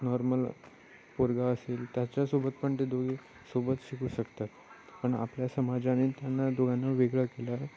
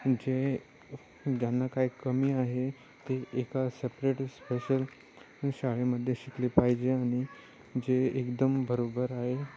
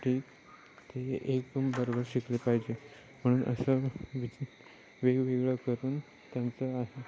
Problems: none marked